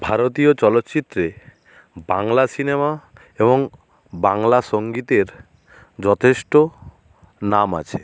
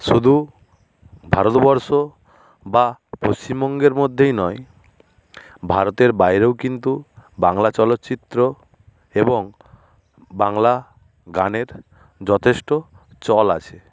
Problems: none marked